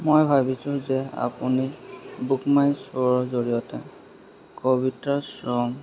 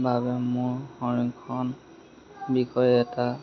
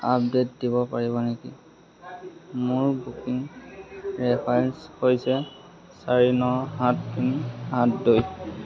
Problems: constant background noise, background conversations at intervals